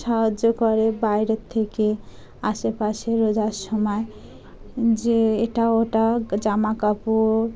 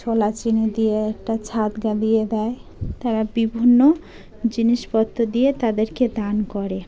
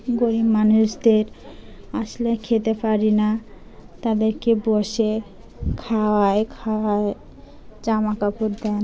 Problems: constant background noise, background conversations at intervals